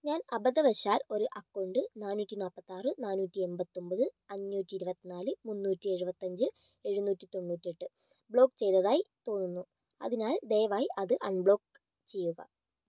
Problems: low volume